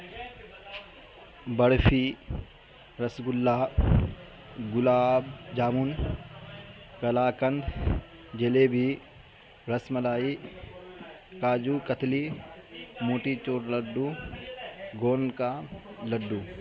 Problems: constant background noise